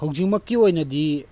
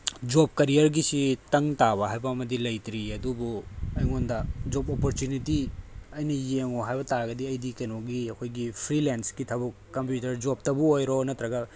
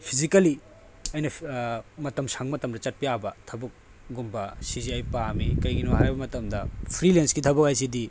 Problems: background sounds at intervals